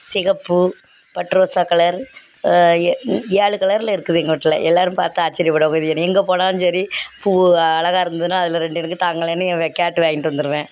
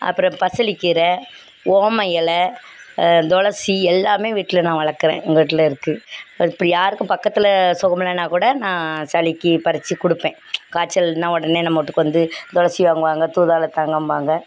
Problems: background sounds at intervals